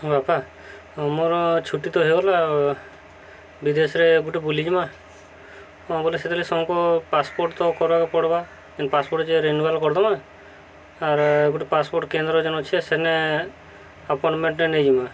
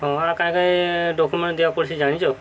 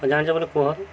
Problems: constant background noise